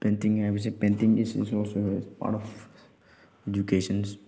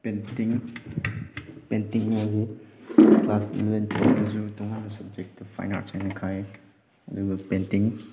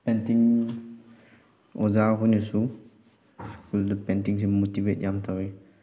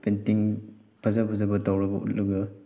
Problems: background sounds at intervals